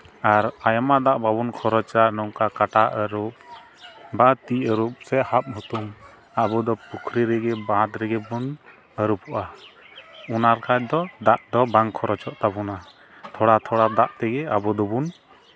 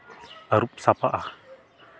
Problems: background sounds at intervals